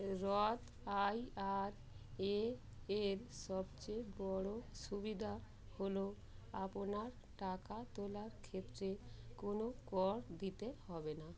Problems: constant background noise, background conversations at intervals